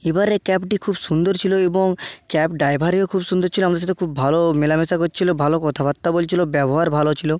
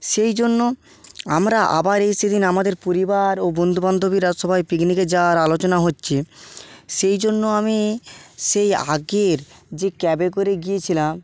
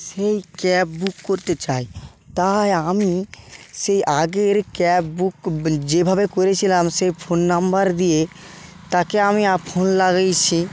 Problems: constant background noise